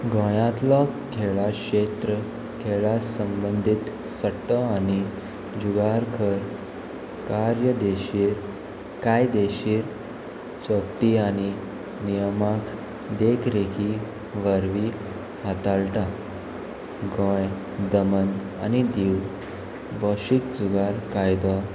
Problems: constant background noise